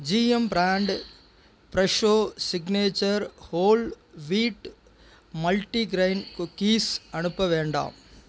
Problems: constant background noise